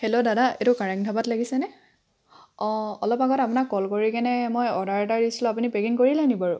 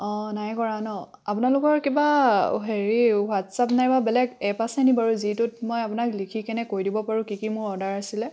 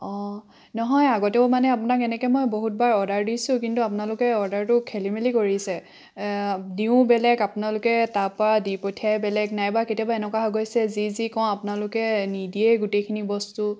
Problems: constant background noise